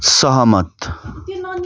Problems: none marked